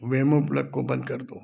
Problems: background sounds at intervals